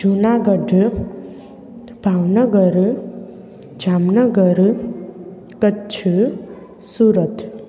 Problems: constant background noise, echo